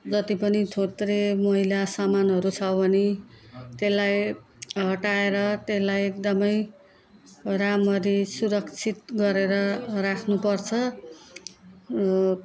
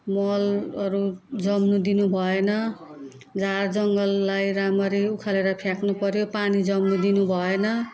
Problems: background conversations at intervals